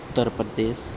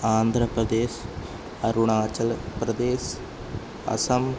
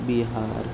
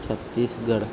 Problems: none marked